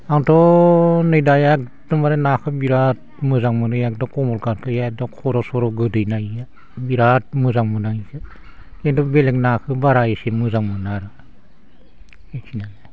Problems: constant background noise